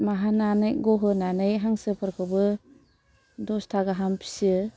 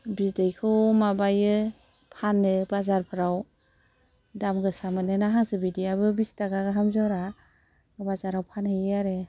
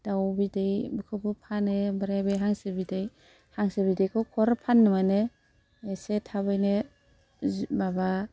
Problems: none marked